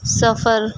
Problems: background sounds at intervals